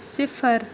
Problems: constant background noise